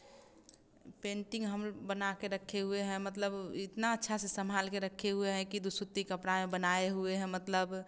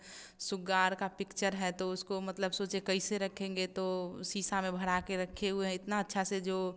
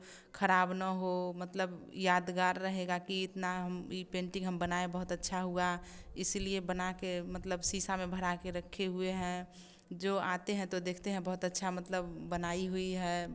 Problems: none marked